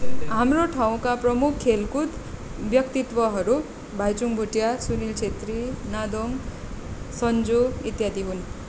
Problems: background conversations at intervals